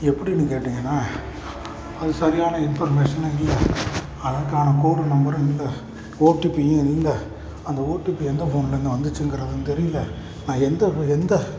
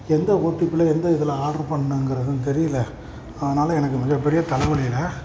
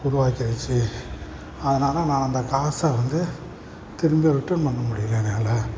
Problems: none marked